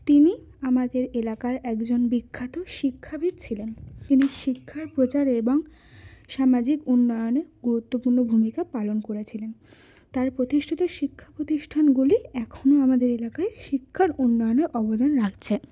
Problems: none marked